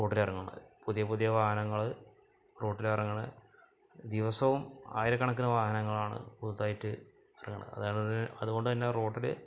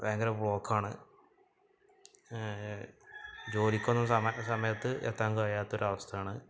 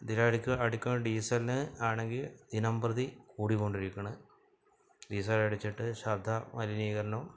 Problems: background sounds at intervals, low volume